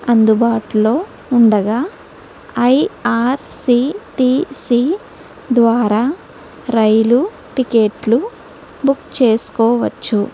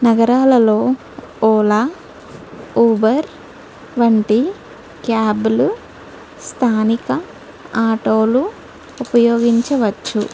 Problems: none marked